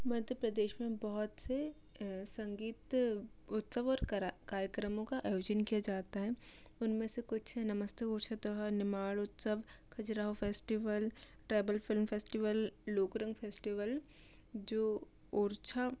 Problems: low volume